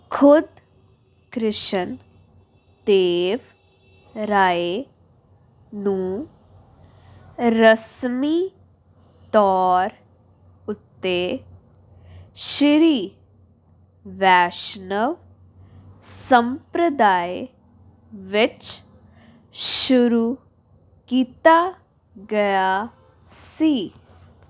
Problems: none marked